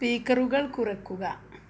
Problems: low volume